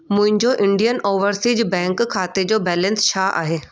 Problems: background sounds at intervals